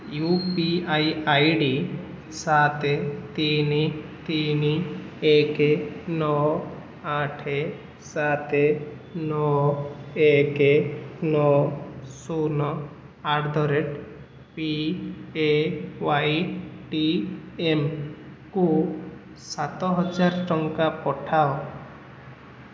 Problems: constant background noise